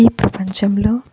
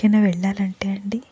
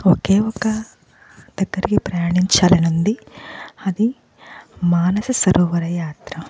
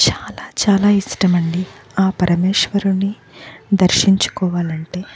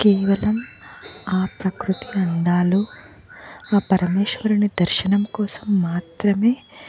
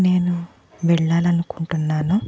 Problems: none marked